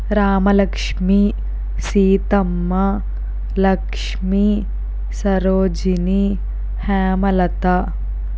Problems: constant background noise